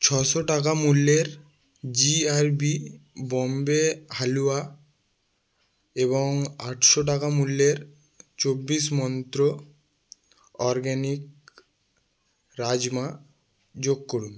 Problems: background sounds at intervals